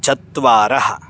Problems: constant background noise